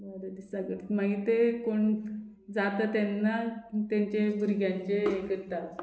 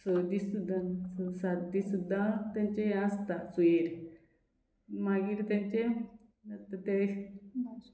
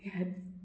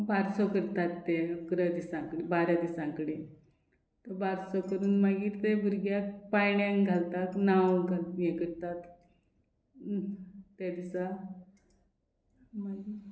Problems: background sounds at intervals